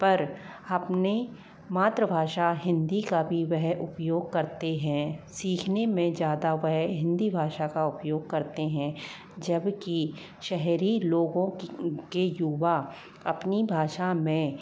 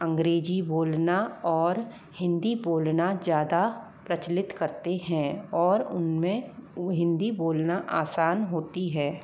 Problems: low volume